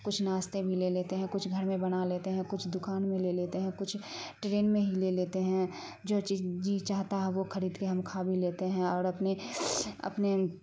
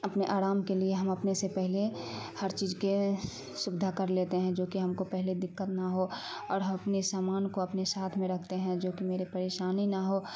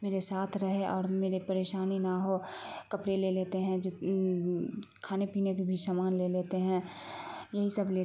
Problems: constant background noise